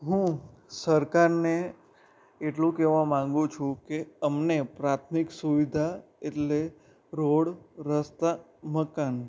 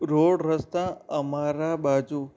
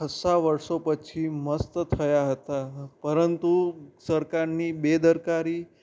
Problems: background sounds at intervals